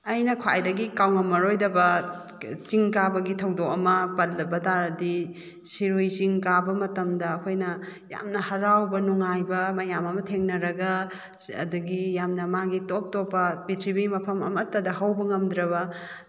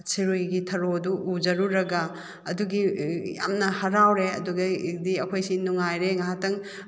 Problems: none marked